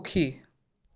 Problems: none marked